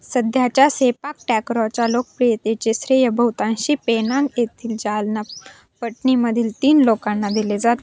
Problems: constant background noise